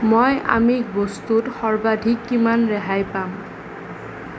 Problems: none marked